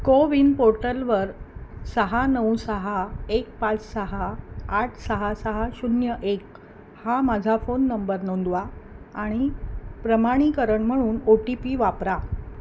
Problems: constant background noise